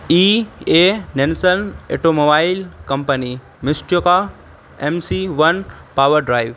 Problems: constant background noise